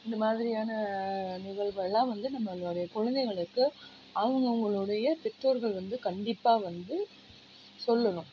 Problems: low volume